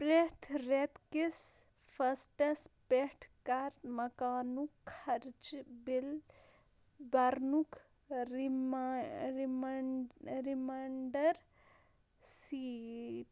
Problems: low volume